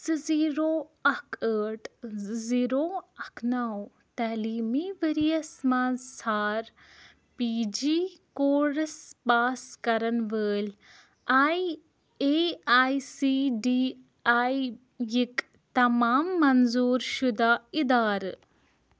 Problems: none marked